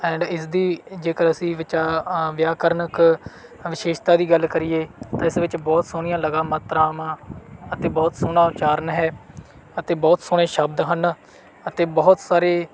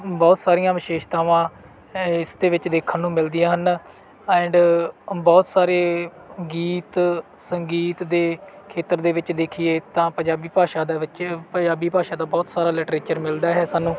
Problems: background sounds at intervals